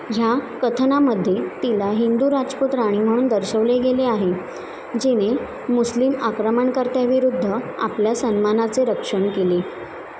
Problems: constant background noise